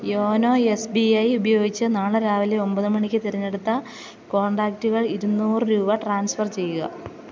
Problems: constant background noise